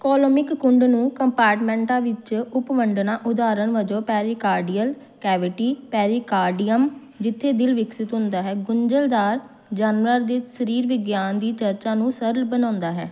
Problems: background sounds at intervals